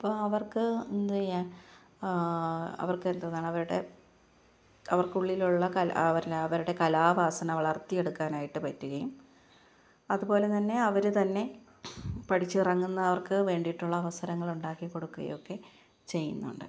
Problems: low volume